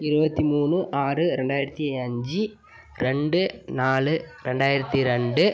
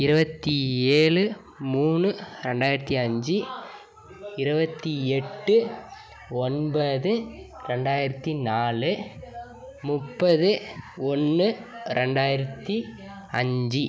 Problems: continuous background conversations